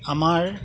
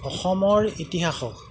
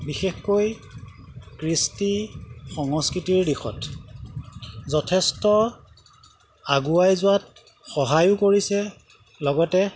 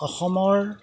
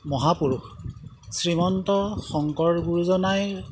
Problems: background sounds at intervals